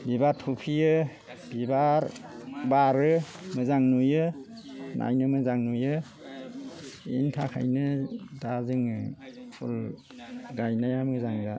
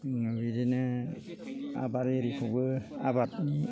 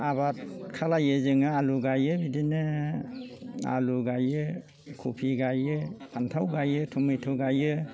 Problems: low volume